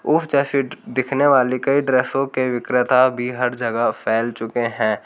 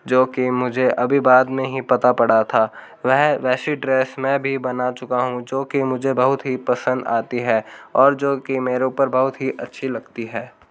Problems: background sounds at intervals